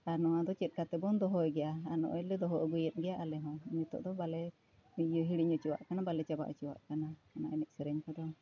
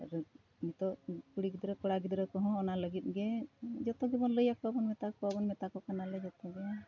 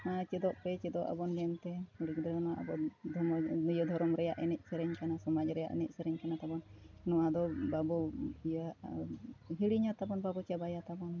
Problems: none marked